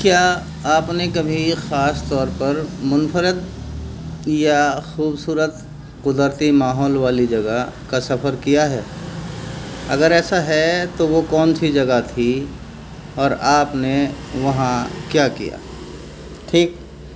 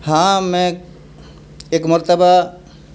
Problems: none marked